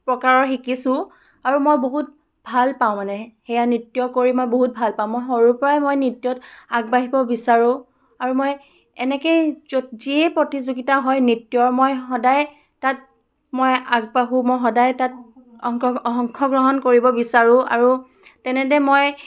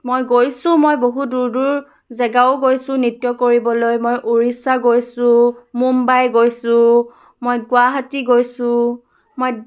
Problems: none marked